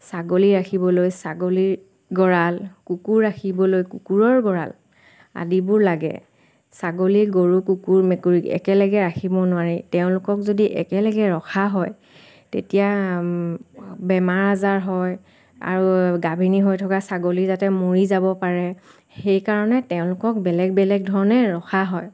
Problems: constant background noise